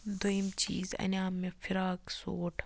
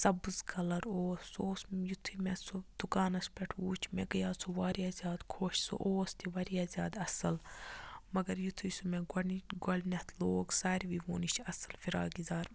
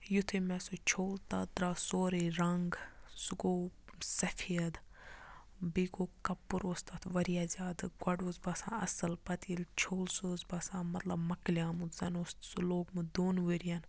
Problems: none marked